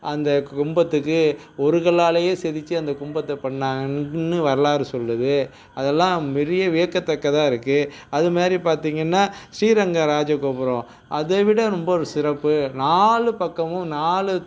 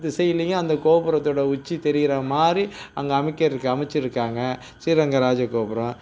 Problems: background sounds at intervals